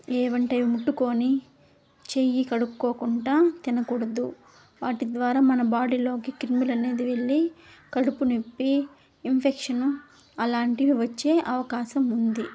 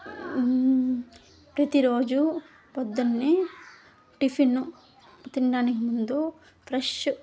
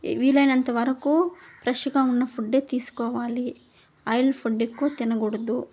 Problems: background sounds at intervals